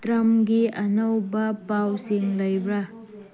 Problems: background conversations at intervals